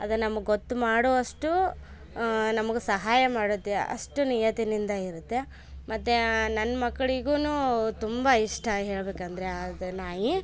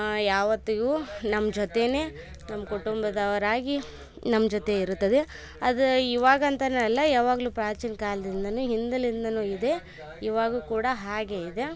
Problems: none marked